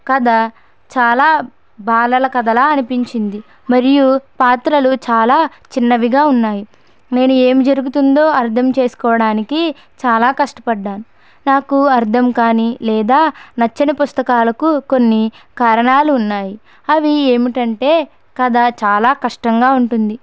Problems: none marked